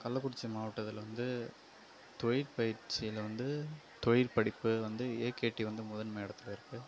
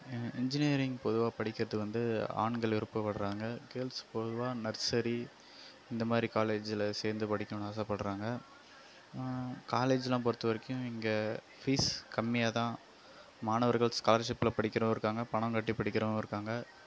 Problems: background sounds at intervals, low volume